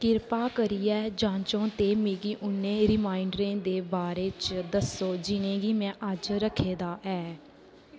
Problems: constant background noise